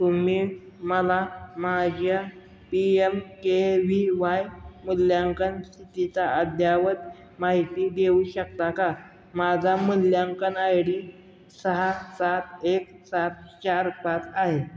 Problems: background sounds at intervals